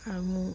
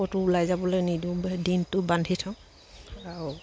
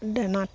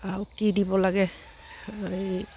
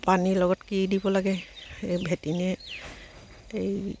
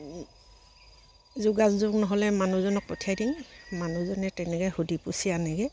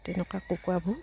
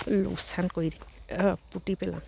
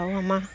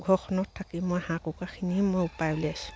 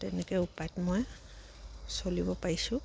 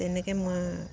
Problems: background sounds at intervals